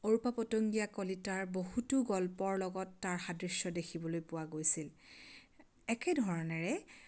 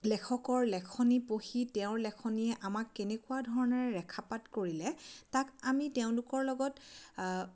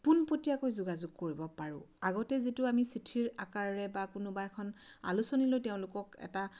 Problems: none marked